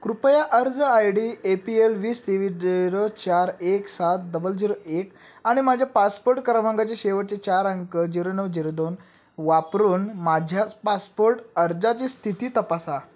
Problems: none marked